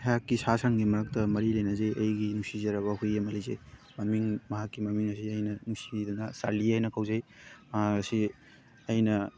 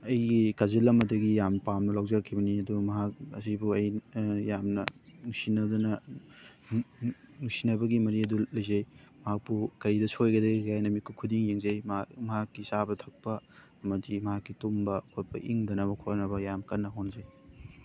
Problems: constant background noise